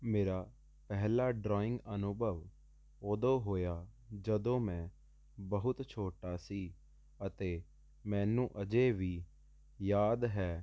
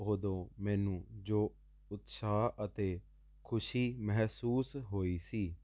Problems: constant background noise